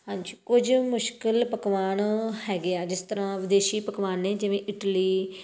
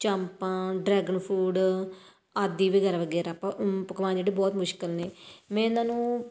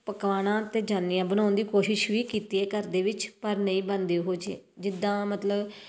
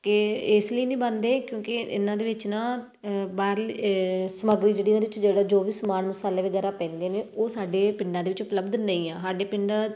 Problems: none marked